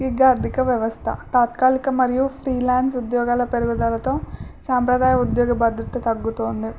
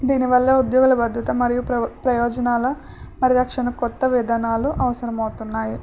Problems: none marked